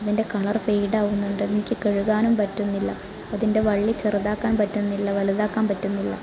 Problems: continuous background conversations